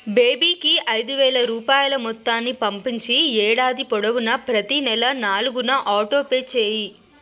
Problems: none marked